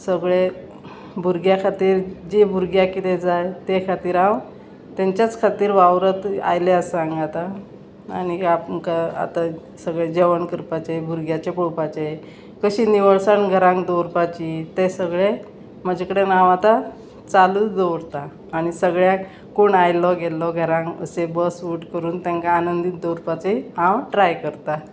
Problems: constant background noise